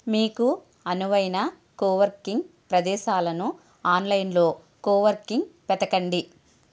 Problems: none marked